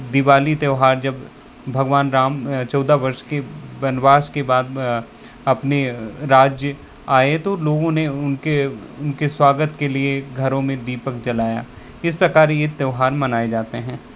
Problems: constant background noise